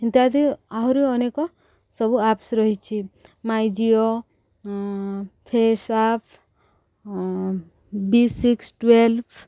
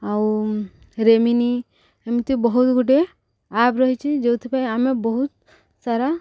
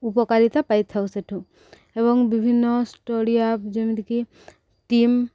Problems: none marked